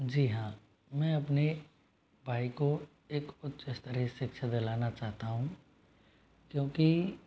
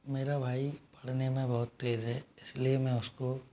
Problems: constant background noise